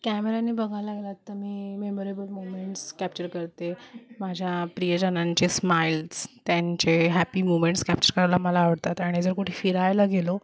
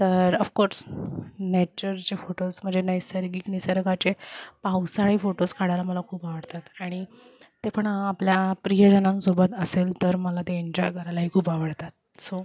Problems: none marked